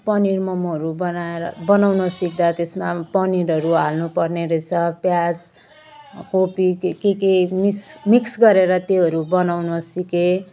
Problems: none marked